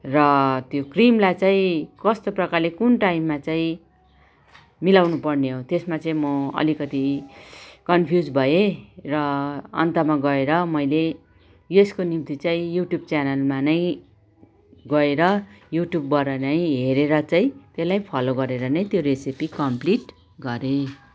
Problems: background sounds at intervals, background conversations at intervals